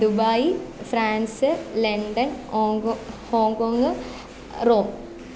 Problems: constant background noise